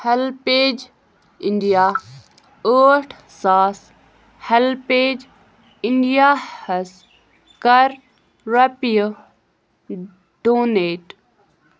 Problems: none marked